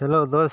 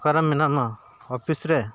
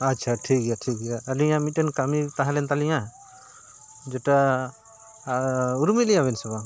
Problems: background sounds at intervals